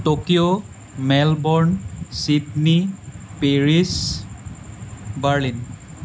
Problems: constant background noise